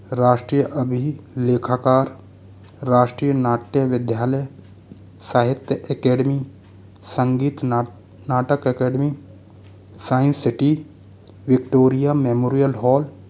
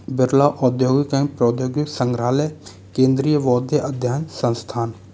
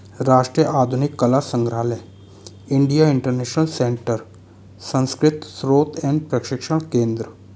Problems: constant background noise